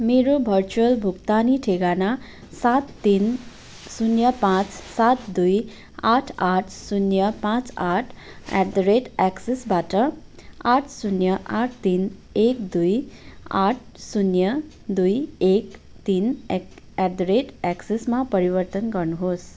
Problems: background sounds at intervals